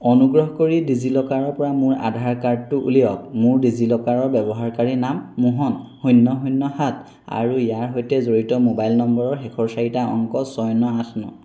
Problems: constant background noise